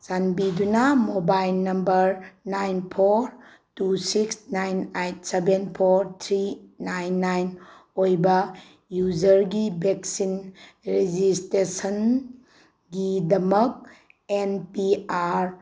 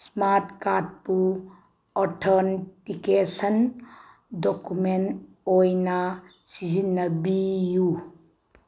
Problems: none marked